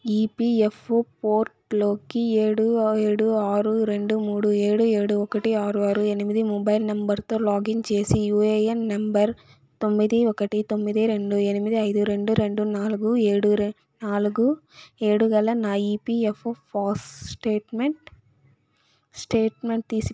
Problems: background sounds at intervals